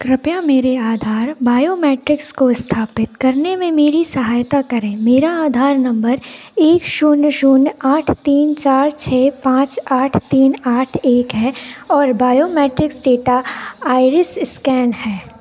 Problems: none marked